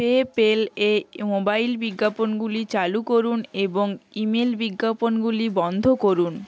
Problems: constant background noise, background conversations at intervals